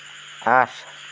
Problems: constant background noise